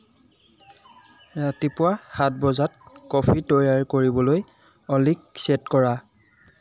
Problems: background sounds at intervals